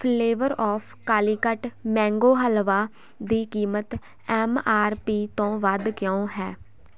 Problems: constant background noise